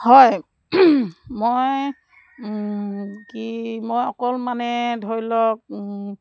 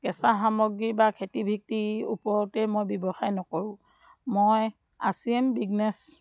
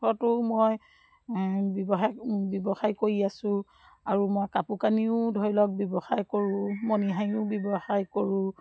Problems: background sounds at intervals